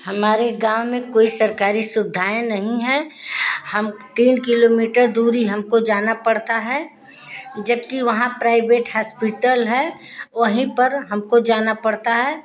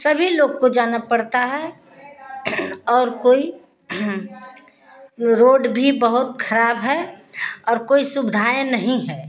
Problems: constant background noise